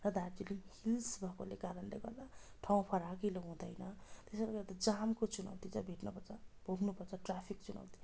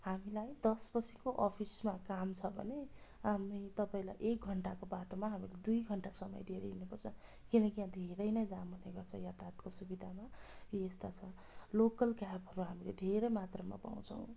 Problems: background sounds at intervals